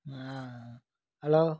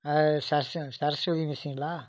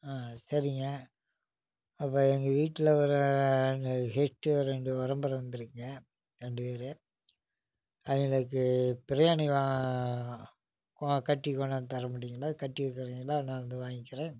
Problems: low volume